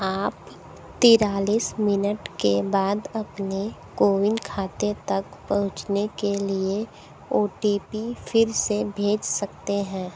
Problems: constant background noise